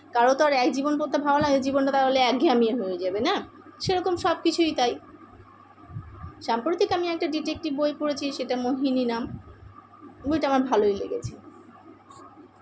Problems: constant background noise